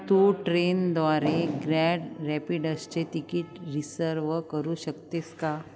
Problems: none marked